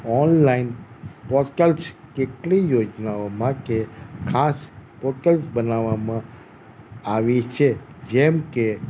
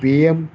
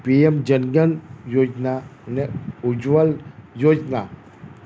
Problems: none marked